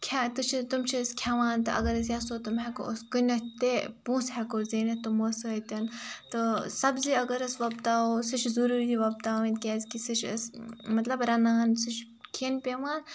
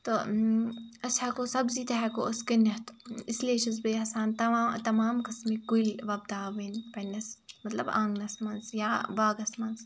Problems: background sounds at intervals